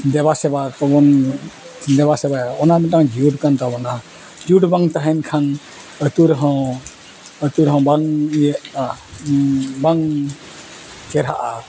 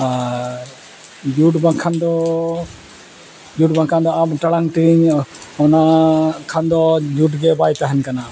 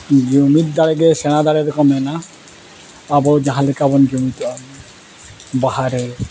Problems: constant background noise